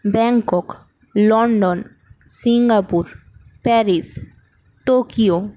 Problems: none marked